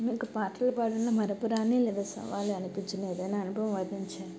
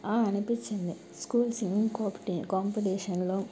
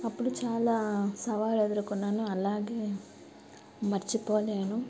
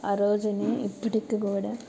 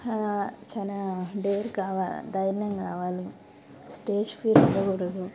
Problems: constant background noise